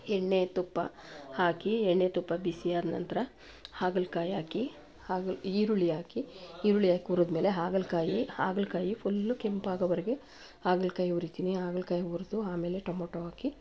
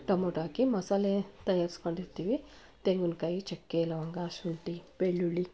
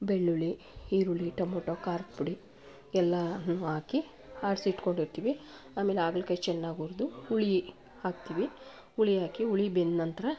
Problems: background sounds at intervals